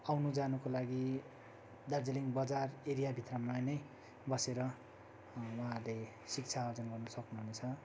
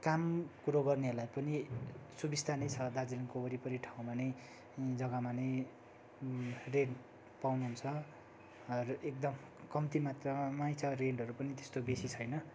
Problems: none marked